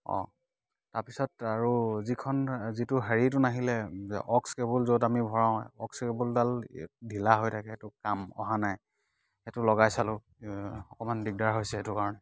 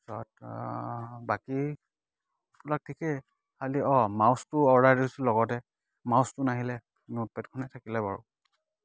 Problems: none marked